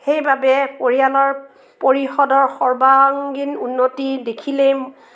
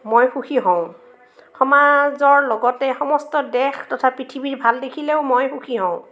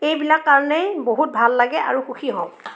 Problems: background sounds at intervals, background conversations at intervals